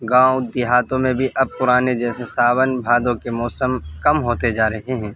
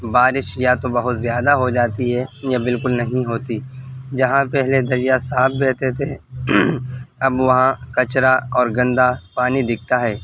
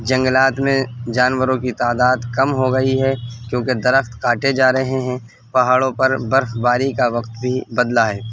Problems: constant background noise